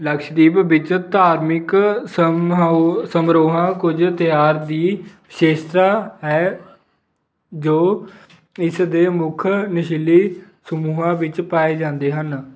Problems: background sounds at intervals